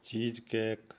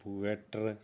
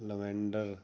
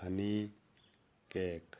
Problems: none marked